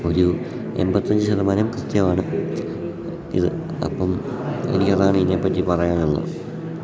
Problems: background sounds at intervals